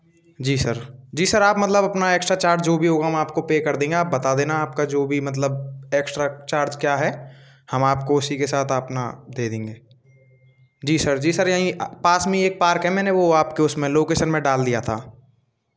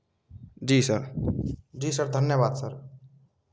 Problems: constant background noise, continuous background conversations